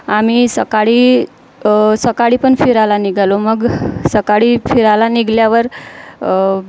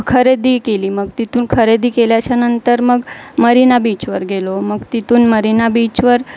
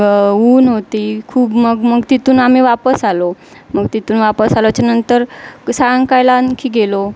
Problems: constant background noise